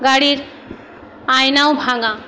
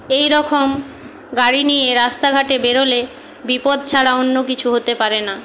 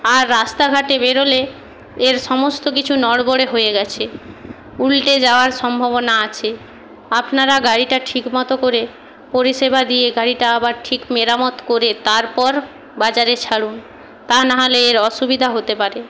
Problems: constant background noise